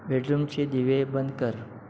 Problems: none marked